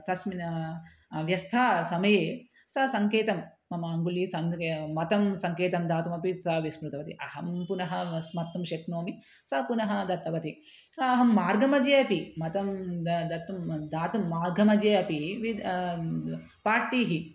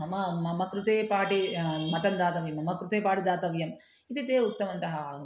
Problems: none marked